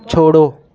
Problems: constant background noise